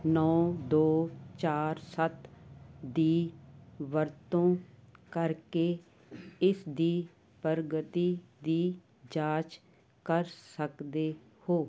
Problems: none marked